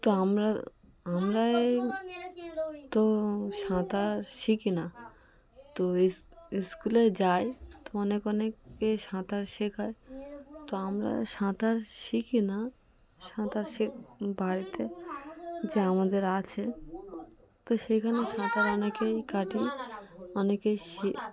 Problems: constant background noise, background conversations at intervals